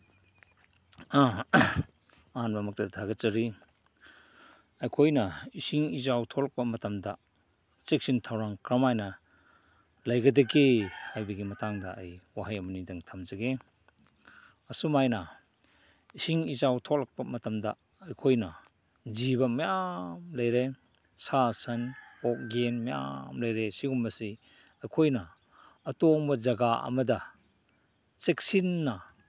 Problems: background sounds at intervals